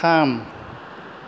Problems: low volume